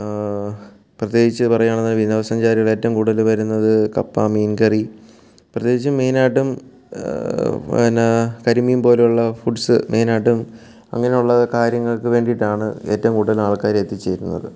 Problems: background sounds at intervals